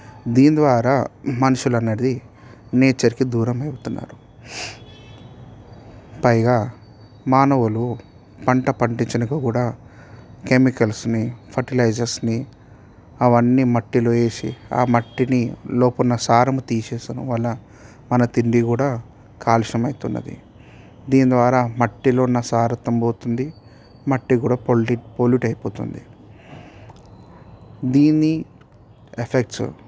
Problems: background sounds at intervals